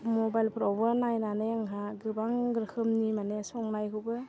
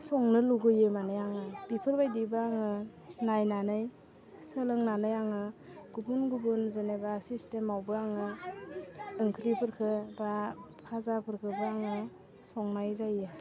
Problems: constant background noise